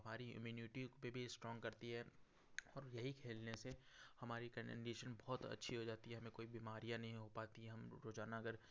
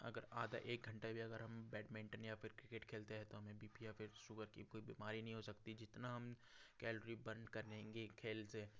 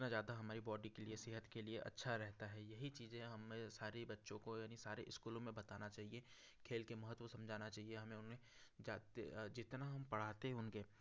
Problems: constant background noise